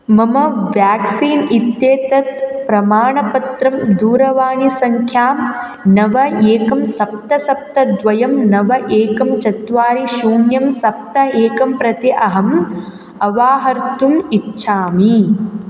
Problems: none marked